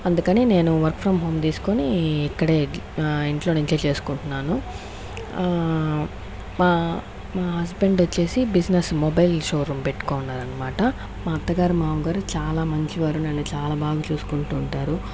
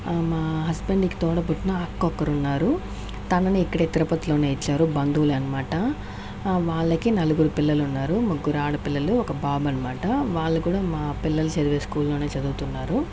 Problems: constant background noise